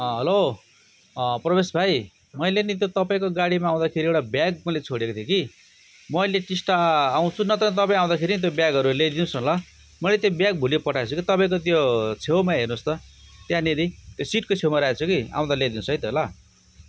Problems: background sounds at intervals